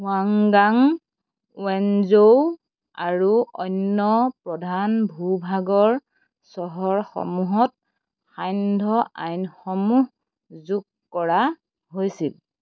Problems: constant background noise